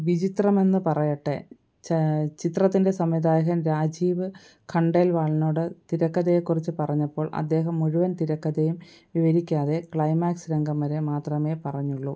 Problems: none marked